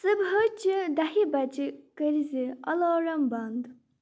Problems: none marked